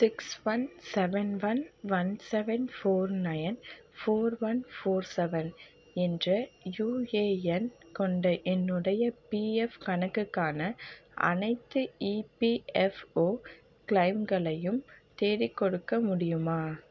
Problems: none marked